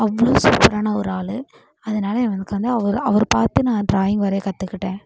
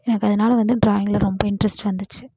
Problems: constant background noise